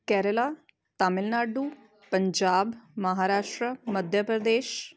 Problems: none marked